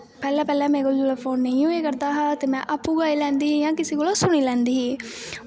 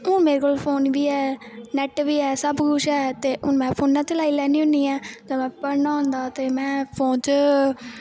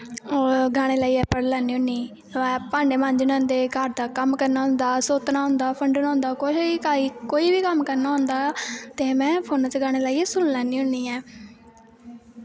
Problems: constant background noise